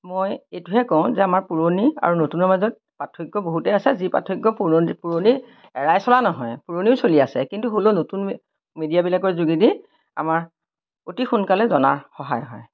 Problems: none marked